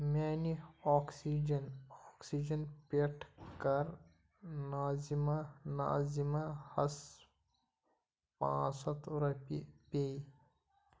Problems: none marked